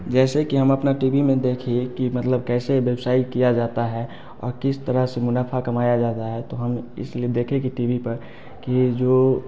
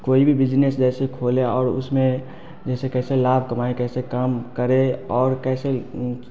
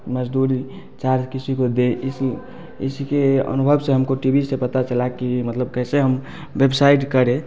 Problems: constant background noise, background conversations at intervals